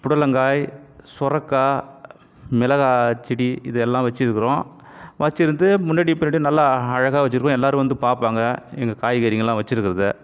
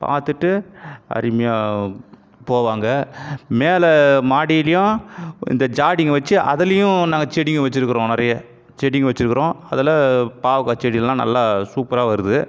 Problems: background sounds at intervals